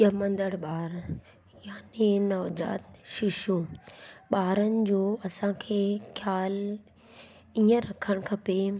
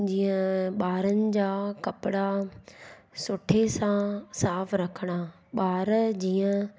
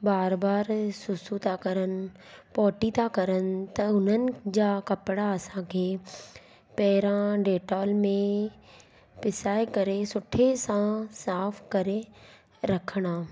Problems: constant background noise